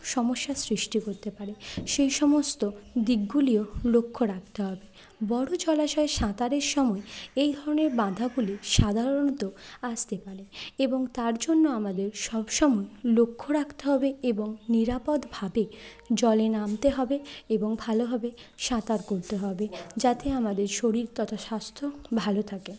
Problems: none marked